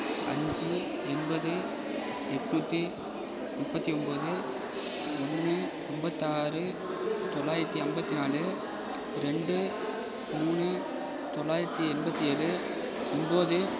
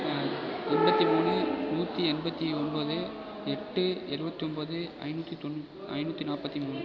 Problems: constant background noise, background conversations at intervals